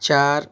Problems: background sounds at intervals